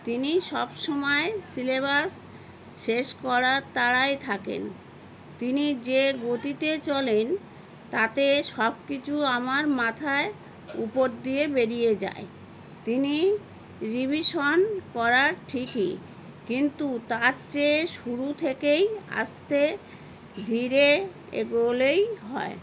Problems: constant background noise